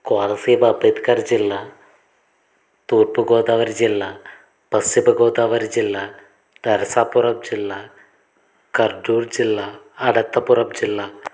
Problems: constant background noise